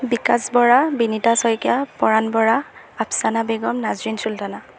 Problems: constant background noise